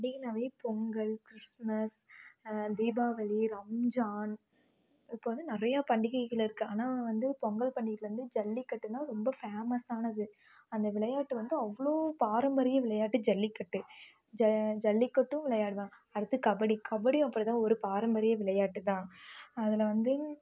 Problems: background sounds at intervals